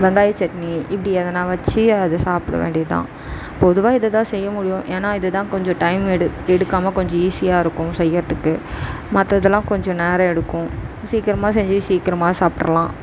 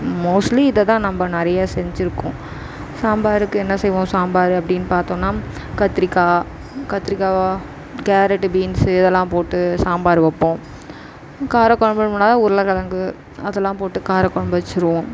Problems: constant background noise